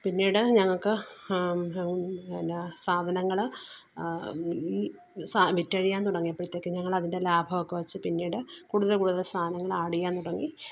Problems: none marked